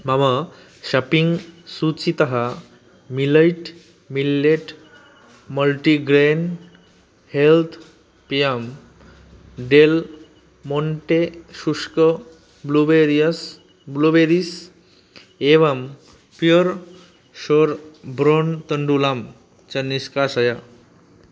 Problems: none marked